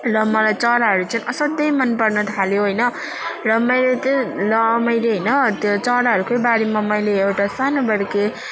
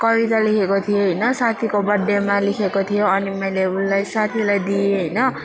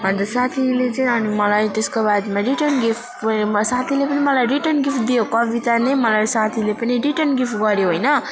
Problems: continuous background conversations